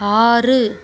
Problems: background sounds at intervals